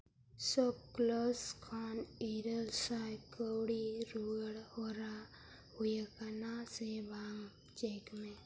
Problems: constant background noise, low volume